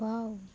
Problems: constant background noise